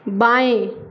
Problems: none marked